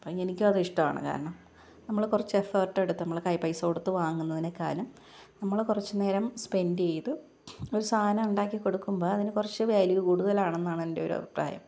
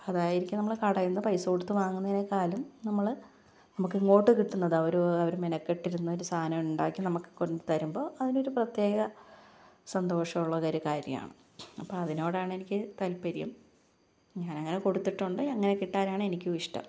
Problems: low volume